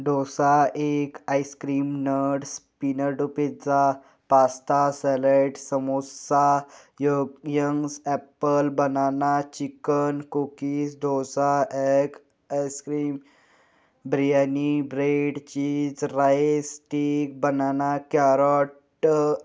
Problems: constant background noise, background conversations at intervals